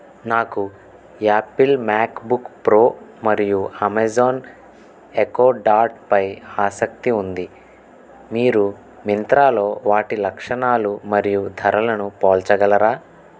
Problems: none marked